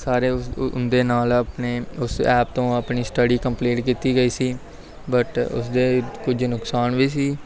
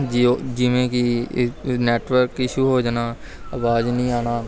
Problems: none marked